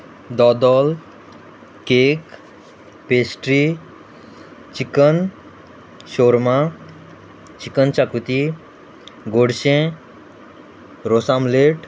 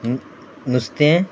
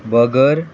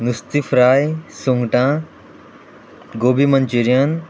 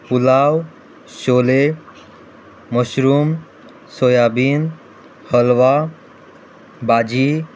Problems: background conversations at intervals